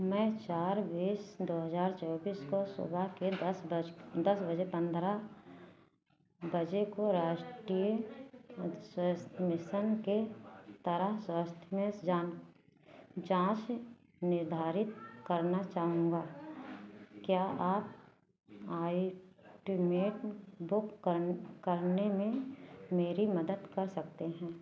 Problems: none marked